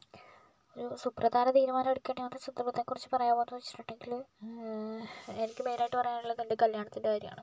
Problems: low volume